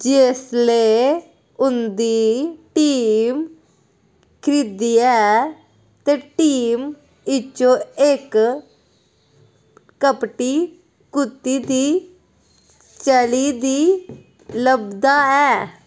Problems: none marked